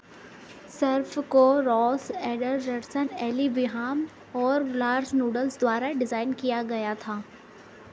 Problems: constant background noise